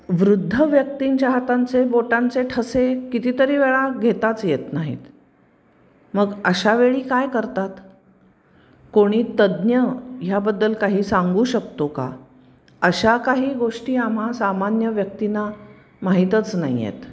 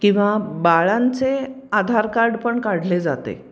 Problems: constant background noise, background conversations at intervals